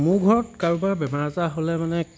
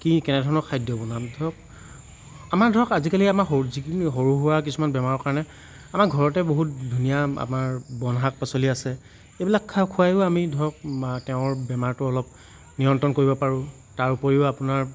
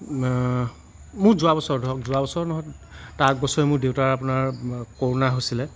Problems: constant background noise